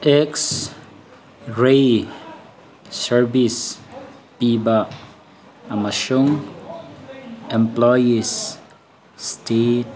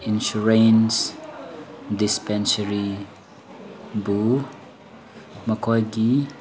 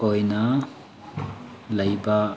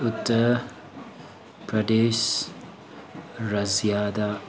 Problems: constant background noise